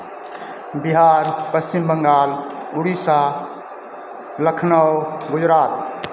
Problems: constant background noise